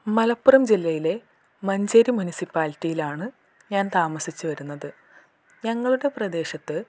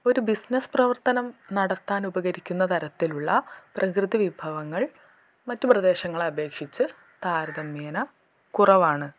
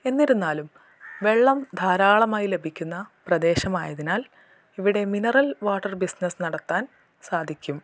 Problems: none marked